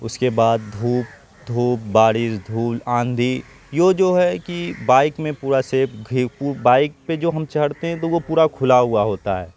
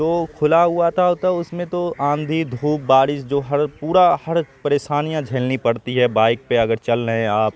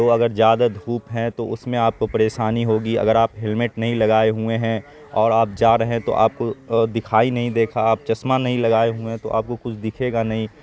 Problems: constant background noise